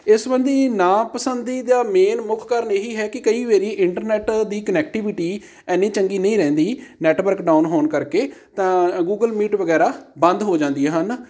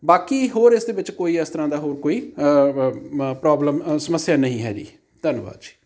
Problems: background sounds at intervals